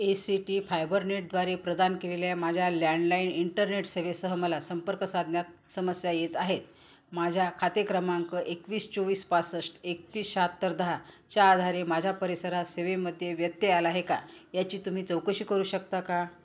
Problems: background sounds at intervals